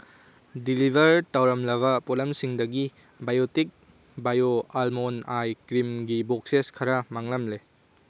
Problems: background sounds at intervals